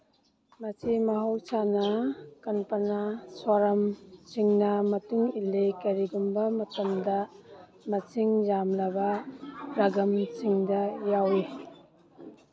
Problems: background sounds at intervals